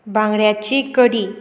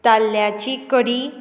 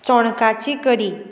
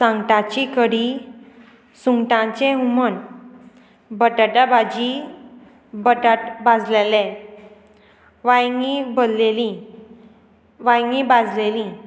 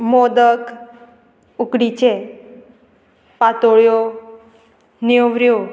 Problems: constant background noise